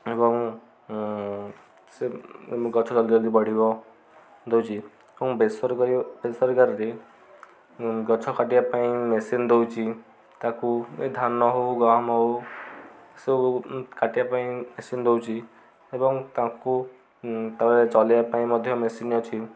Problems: constant background noise, continuous background conversations